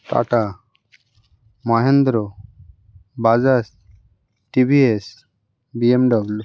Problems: none marked